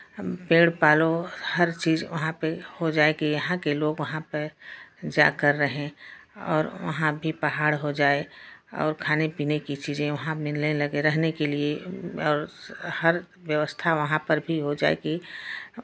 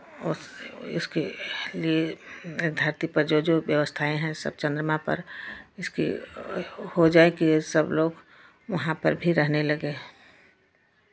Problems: none marked